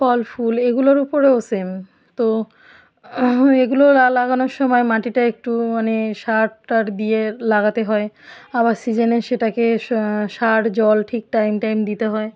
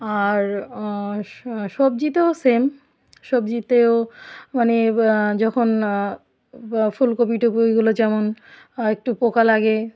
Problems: background sounds at intervals